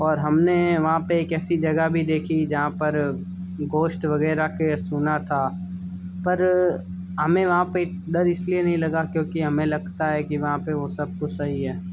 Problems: constant background noise, background conversations at intervals